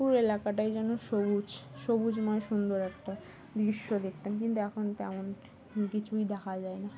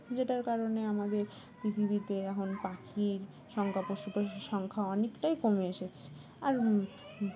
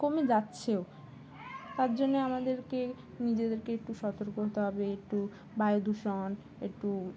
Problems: constant background noise, background conversations at intervals